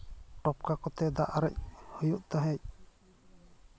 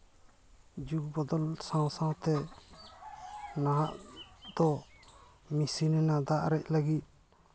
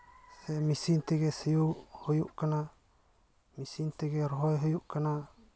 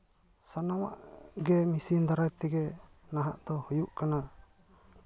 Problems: constant background noise, background conversations at intervals